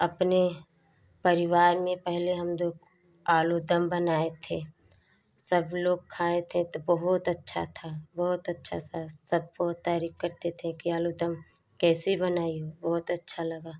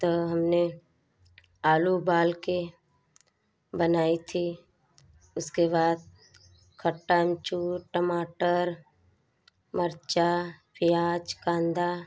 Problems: background sounds at intervals